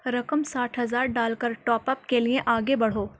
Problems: none marked